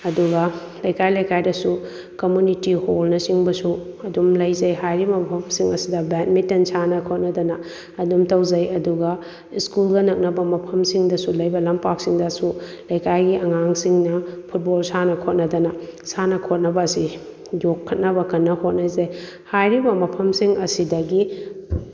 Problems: none marked